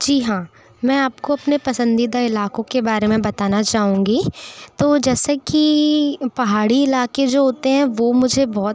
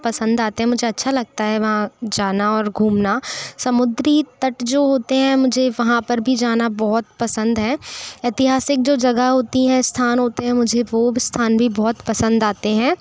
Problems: none marked